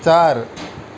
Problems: none marked